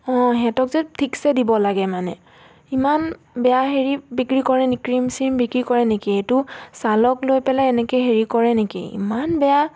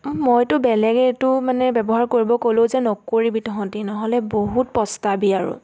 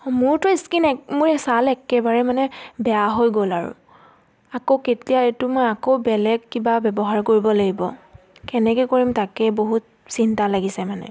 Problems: none marked